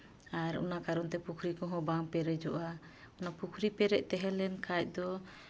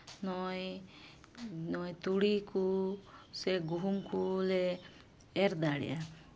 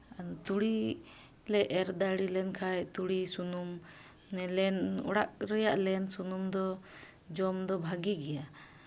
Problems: constant background noise, background conversations at intervals